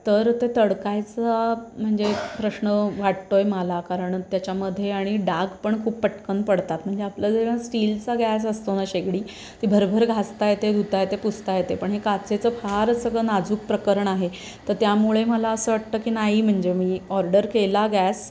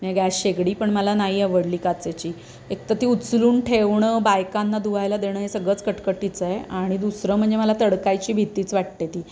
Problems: none marked